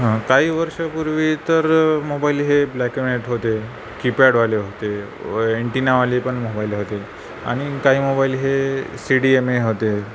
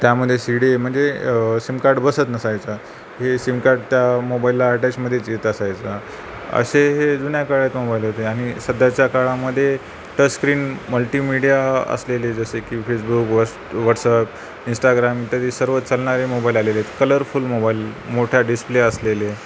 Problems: none marked